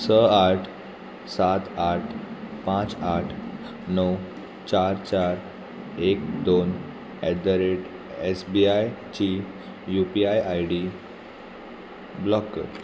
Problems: constant background noise